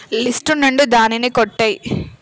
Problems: constant background noise